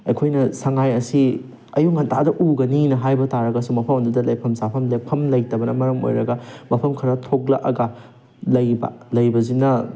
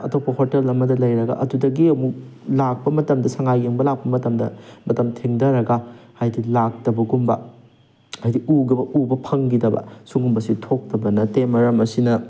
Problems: background sounds at intervals